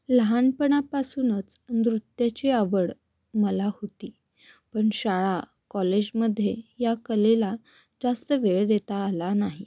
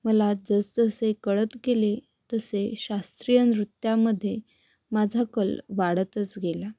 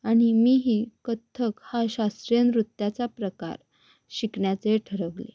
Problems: background sounds at intervals